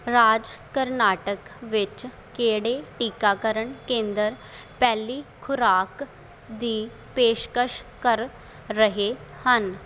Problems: none marked